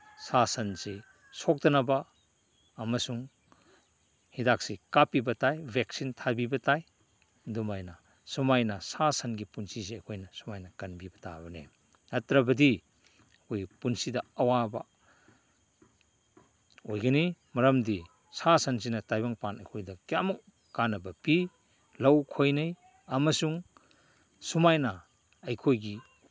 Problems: background sounds at intervals